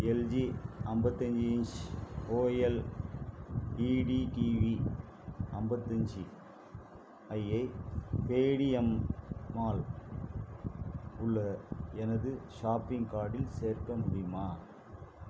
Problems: constant background noise